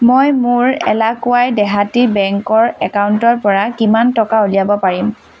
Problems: constant background noise